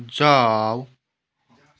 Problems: none marked